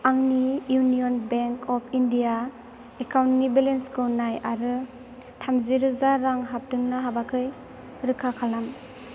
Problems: constant background noise